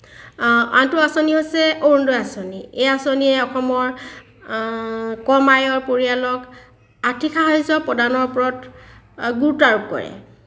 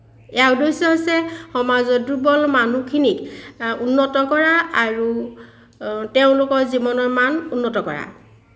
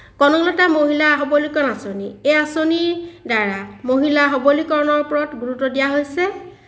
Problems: none marked